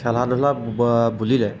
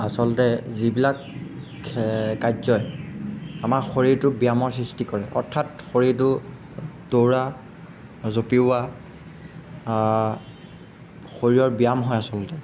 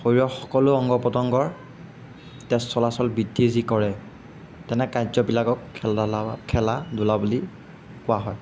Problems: background sounds at intervals